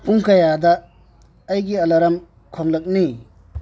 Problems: low volume